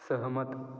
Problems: echo